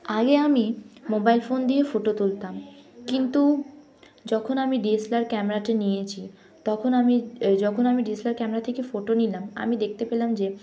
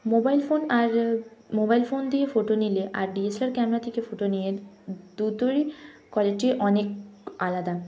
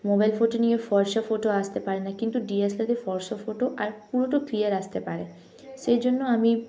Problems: none marked